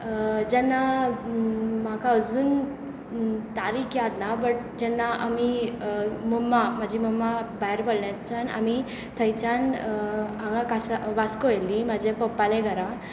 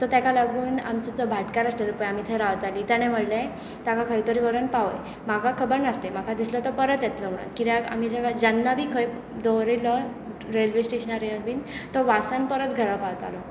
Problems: constant background noise